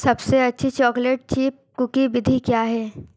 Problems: constant background noise